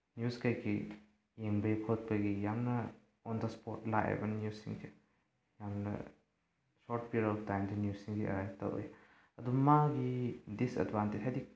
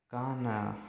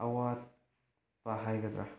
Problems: low volume